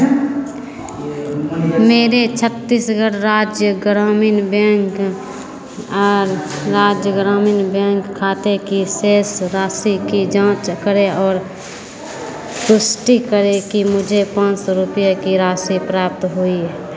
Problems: none marked